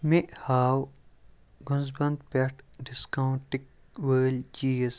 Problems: background sounds at intervals